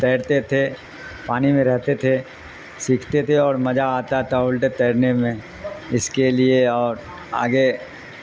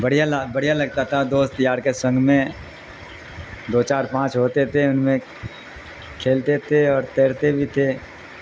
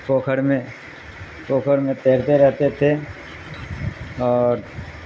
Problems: constant background noise